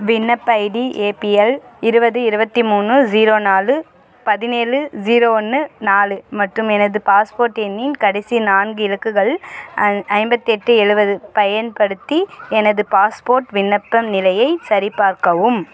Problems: background sounds at intervals